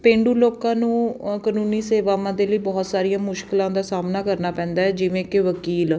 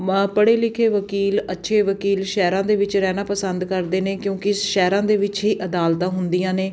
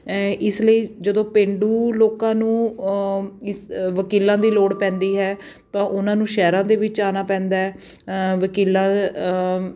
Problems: none marked